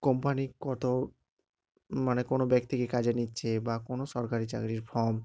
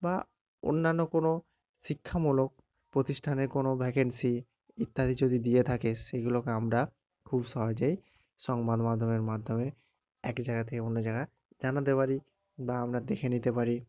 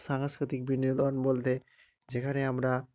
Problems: none marked